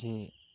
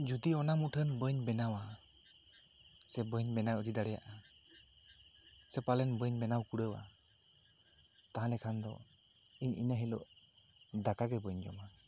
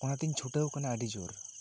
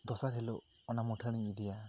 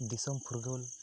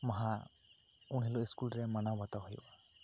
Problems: constant background noise